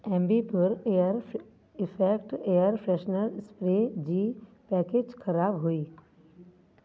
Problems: constant background noise, echo